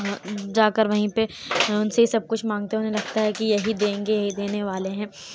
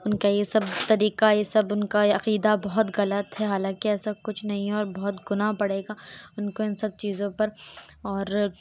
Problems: constant background noise, background conversations at intervals